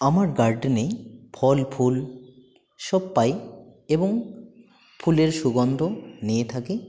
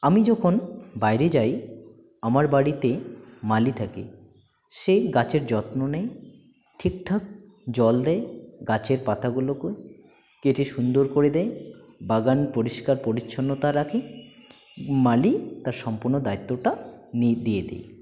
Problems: none marked